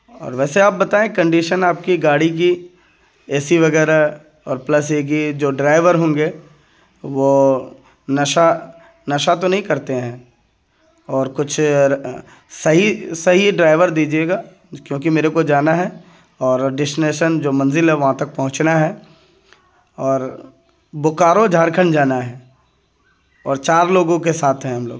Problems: none marked